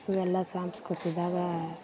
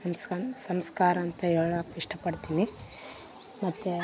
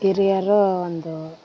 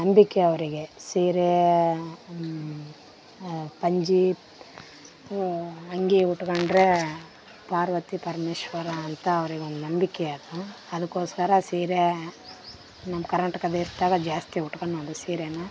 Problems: background sounds at intervals